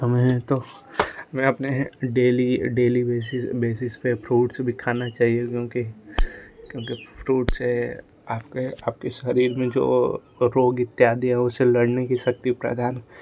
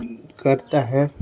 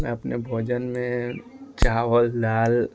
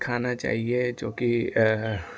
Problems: constant background noise